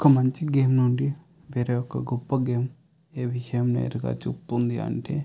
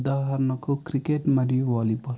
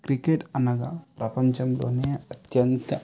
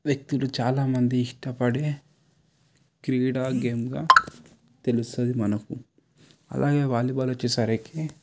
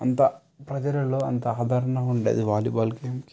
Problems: none marked